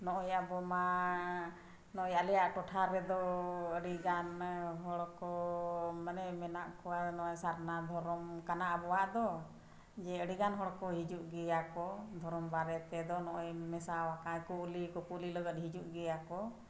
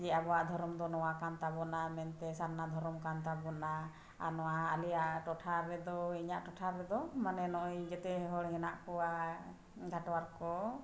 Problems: none marked